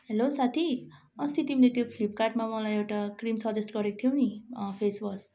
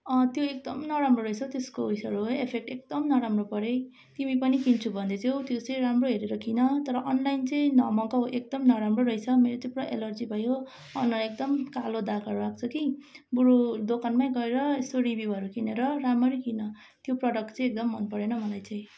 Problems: none marked